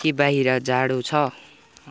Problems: none marked